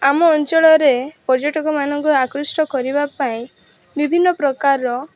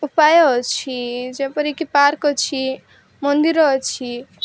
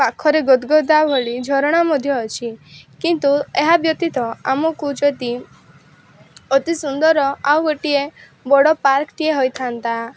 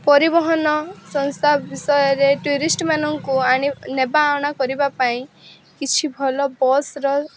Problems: constant background noise